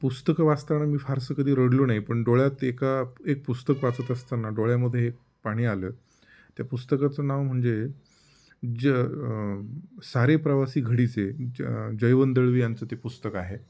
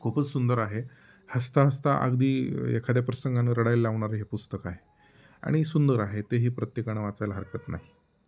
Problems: background sounds at intervals